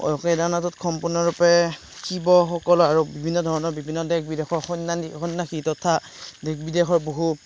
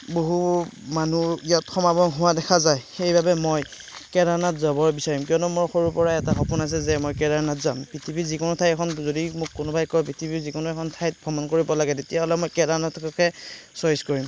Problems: background sounds at intervals, background conversations at intervals